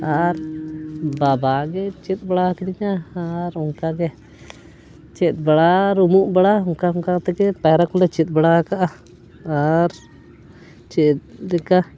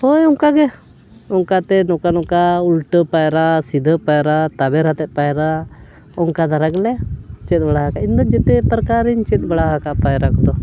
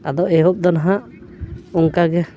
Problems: none marked